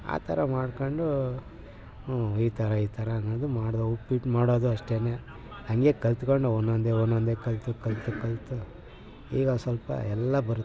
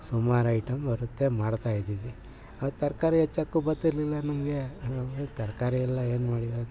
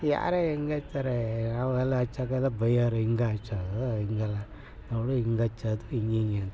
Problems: background sounds at intervals